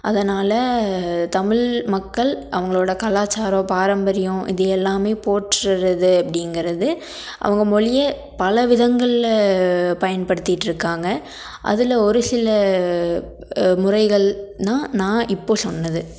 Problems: none marked